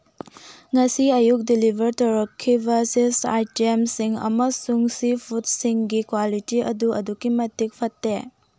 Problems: none marked